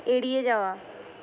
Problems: constant background noise